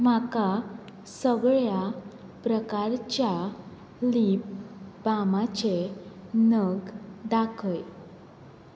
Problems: constant background noise